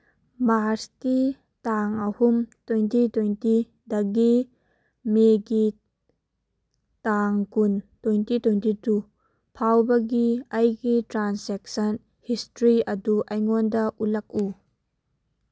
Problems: none marked